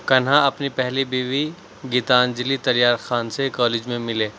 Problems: background sounds at intervals